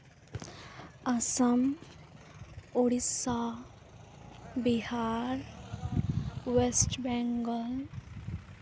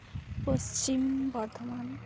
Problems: constant background noise, background conversations at intervals